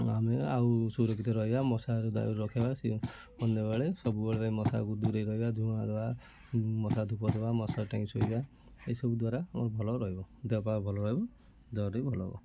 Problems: constant background noise, continuous background conversations